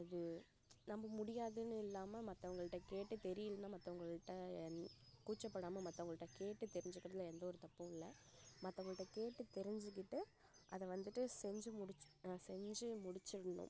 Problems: background sounds at intervals, low volume